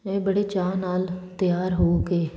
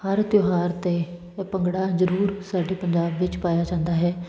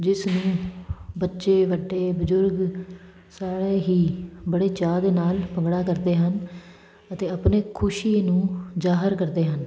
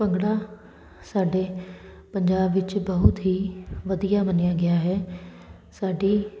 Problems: constant background noise